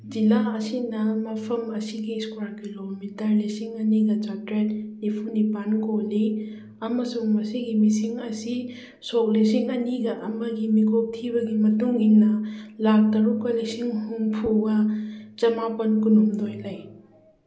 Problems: none marked